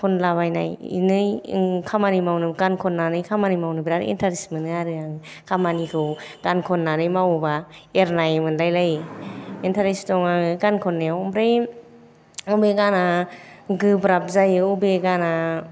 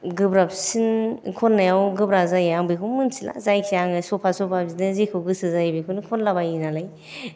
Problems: none marked